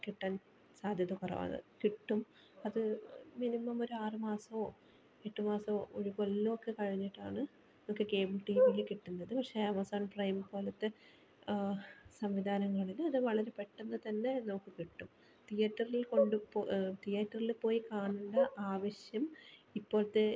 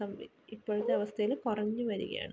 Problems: background sounds at intervals, low volume